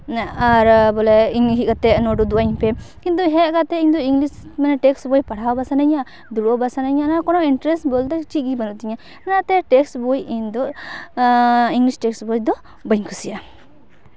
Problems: background sounds at intervals